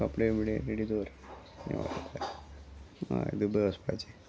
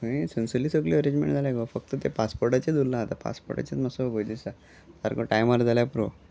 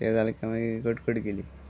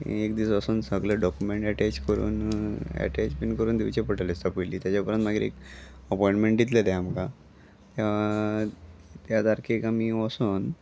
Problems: constant background noise